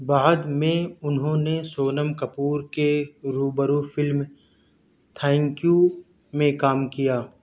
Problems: none marked